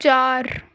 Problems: none marked